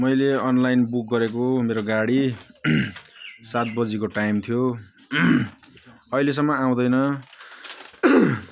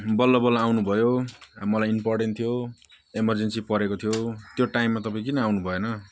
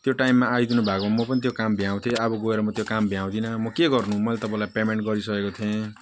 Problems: none marked